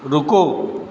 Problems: background sounds at intervals